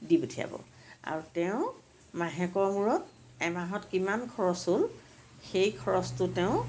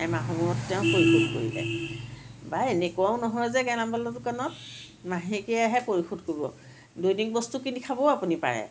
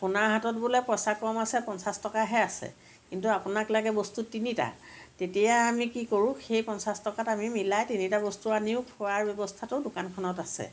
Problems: none marked